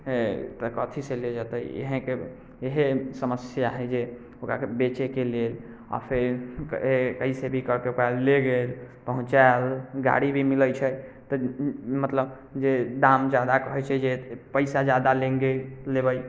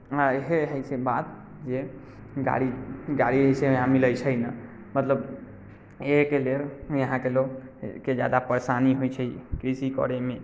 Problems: none marked